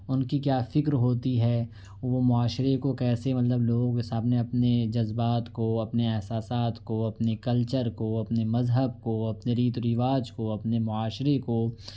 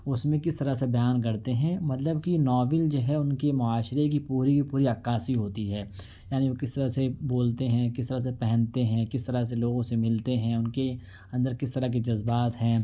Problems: none marked